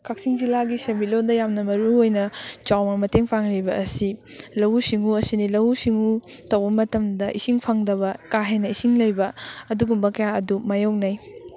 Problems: constant background noise